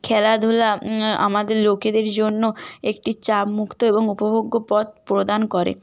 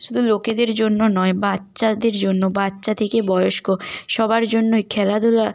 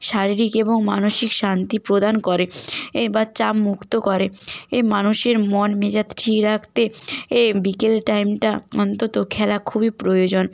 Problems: constant background noise